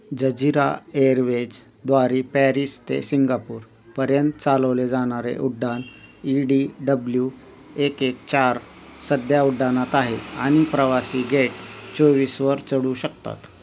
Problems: constant background noise